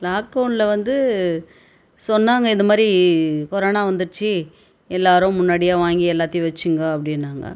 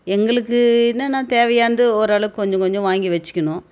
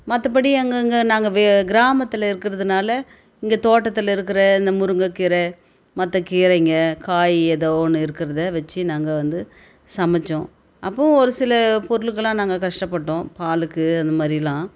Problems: none marked